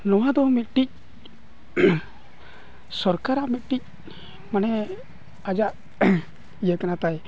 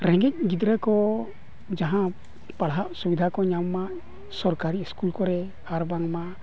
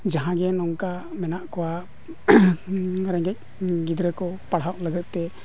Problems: background sounds at intervals